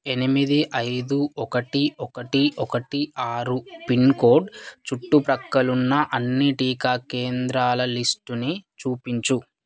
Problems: background conversations at intervals